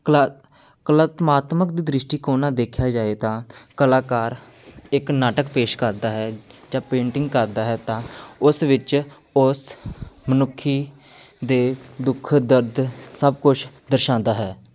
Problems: none marked